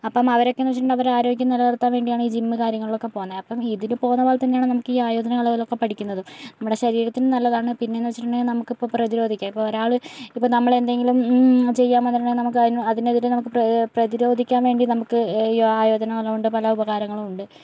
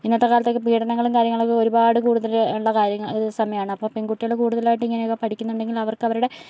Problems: none marked